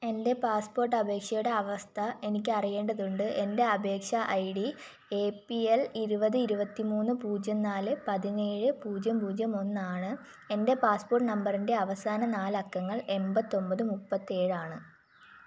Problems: none marked